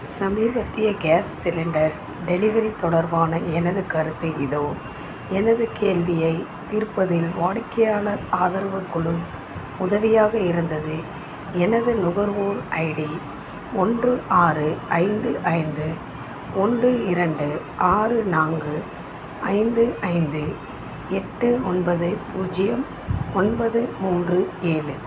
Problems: constant background noise